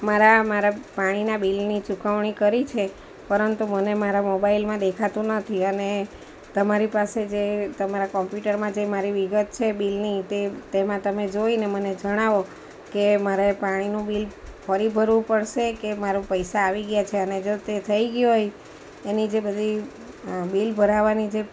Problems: none marked